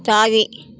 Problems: constant background noise